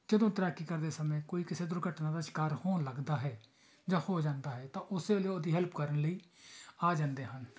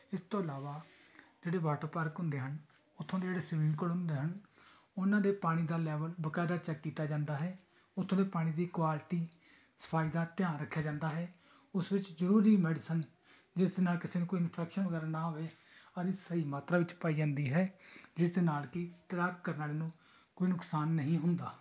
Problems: background conversations at intervals